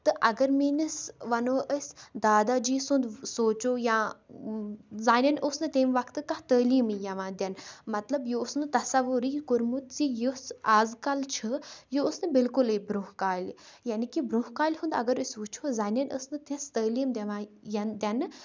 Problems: none marked